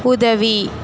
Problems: none marked